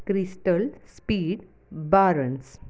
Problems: none marked